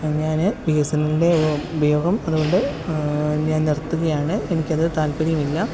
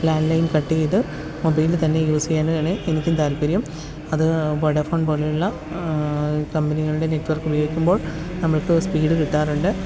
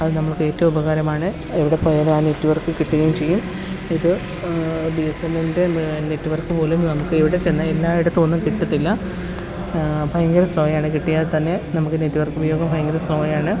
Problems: constant background noise